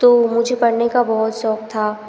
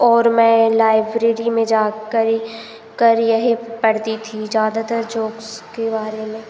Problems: constant background noise